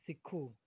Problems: none marked